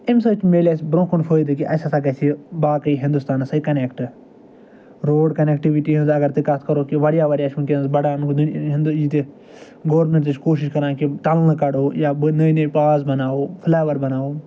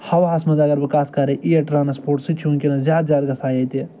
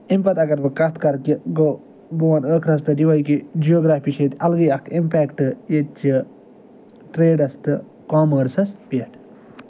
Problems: none marked